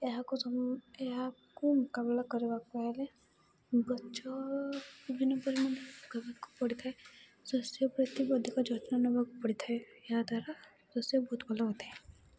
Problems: constant background noise